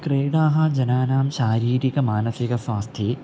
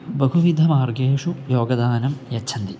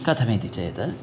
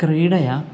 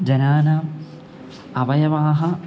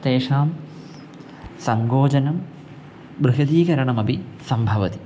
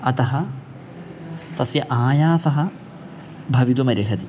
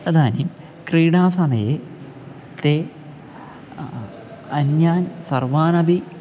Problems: background sounds at intervals